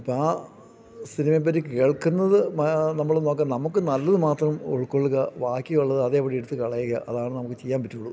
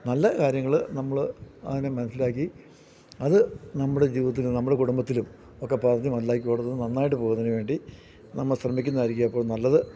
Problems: none marked